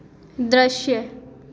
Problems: constant background noise, echo